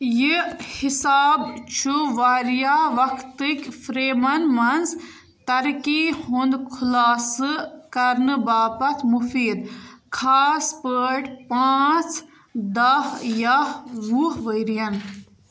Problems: background sounds at intervals